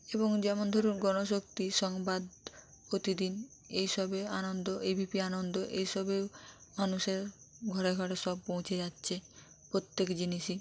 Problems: none marked